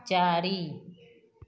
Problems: none marked